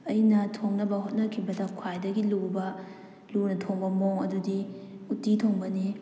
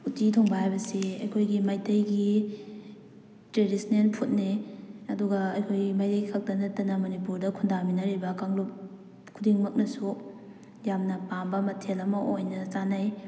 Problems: none marked